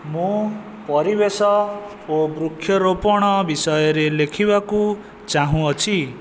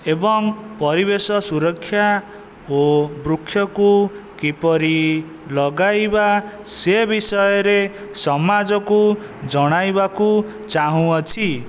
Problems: constant background noise